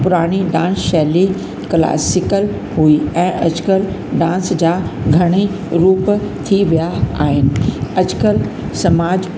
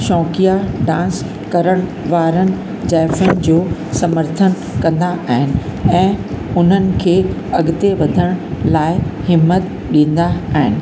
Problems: constant background noise, echo